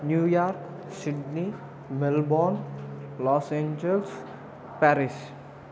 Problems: constant background noise, background conversations at intervals